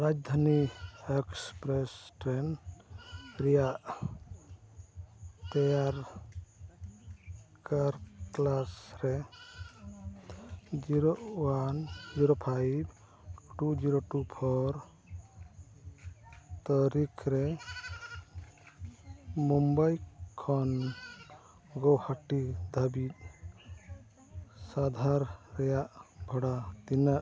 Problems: constant background noise, background conversations at intervals